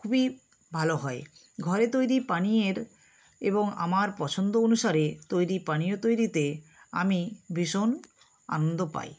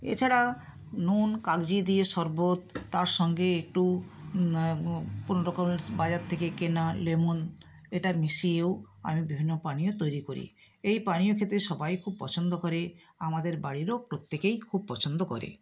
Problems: none marked